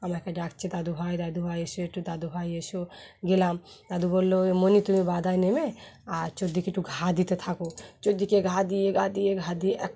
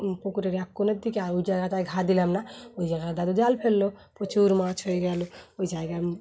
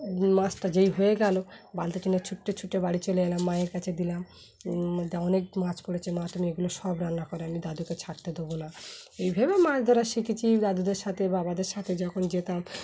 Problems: constant background noise